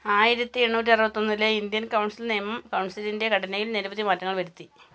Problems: none marked